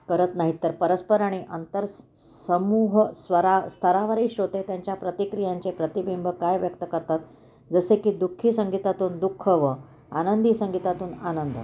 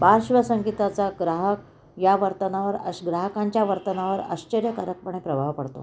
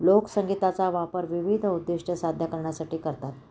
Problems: none marked